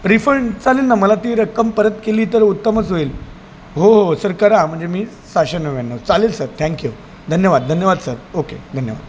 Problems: none marked